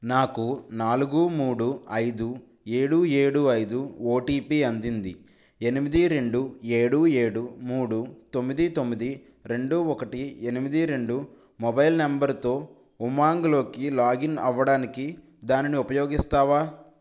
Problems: none marked